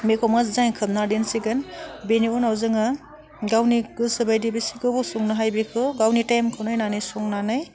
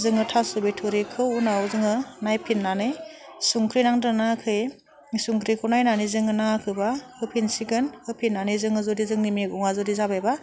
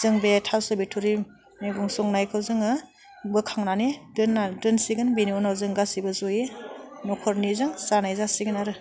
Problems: none marked